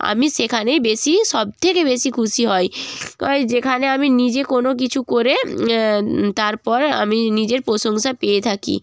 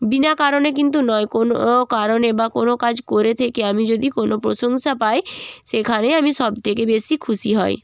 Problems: none marked